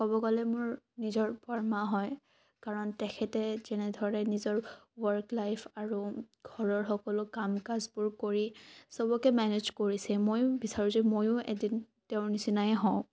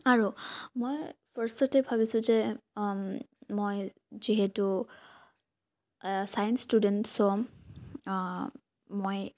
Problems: low volume